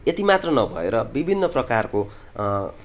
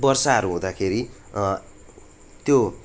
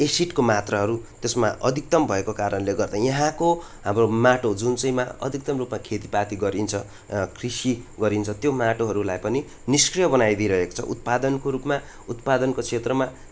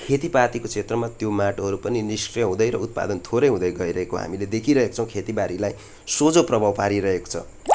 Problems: constant background noise